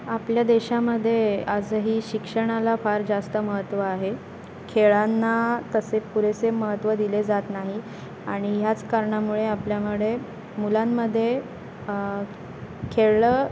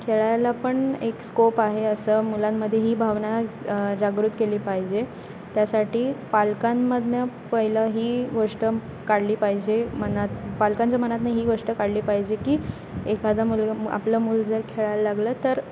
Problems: constant background noise, background conversations at intervals